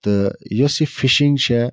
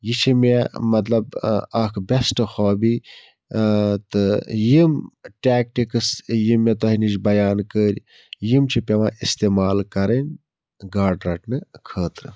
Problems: none marked